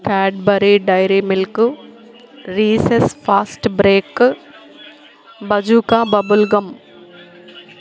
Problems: continuous background conversations